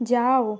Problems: constant background noise